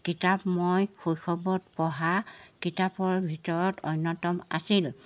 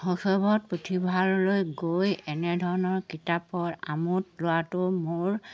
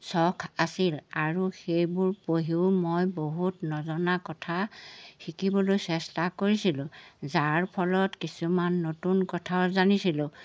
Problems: background sounds at intervals